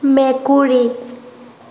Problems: constant background noise